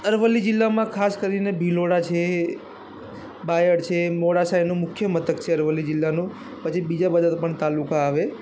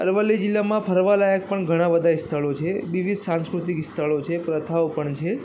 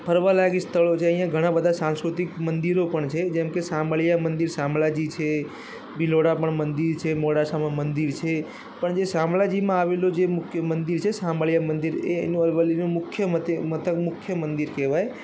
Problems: constant background noise